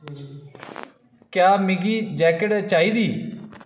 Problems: echo